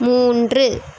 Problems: constant background noise